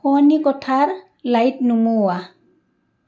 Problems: background sounds at intervals, background conversations at intervals